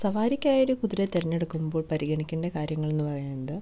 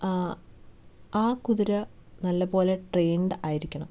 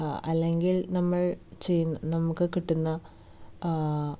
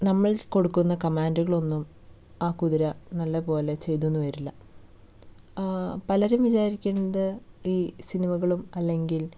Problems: none marked